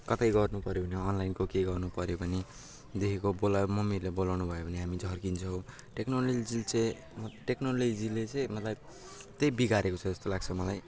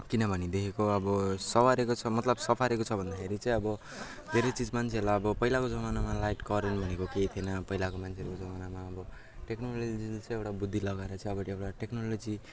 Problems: constant background noise, background conversations at intervals